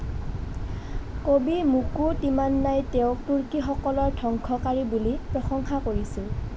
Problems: constant background noise